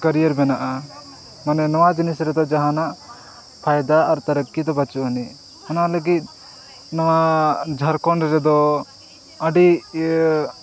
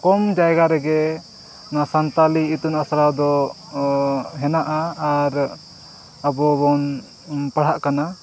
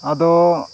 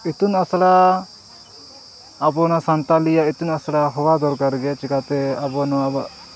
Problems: background sounds at intervals, background conversations at intervals